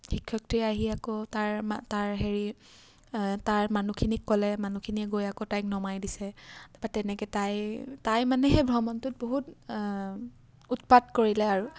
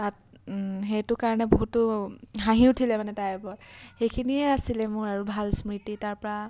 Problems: none marked